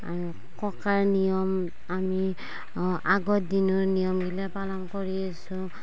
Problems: constant background noise